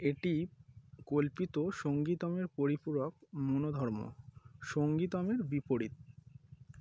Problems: none marked